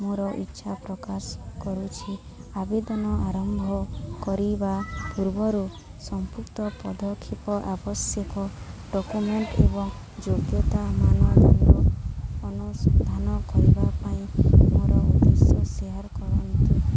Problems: constant background noise, continuous background conversations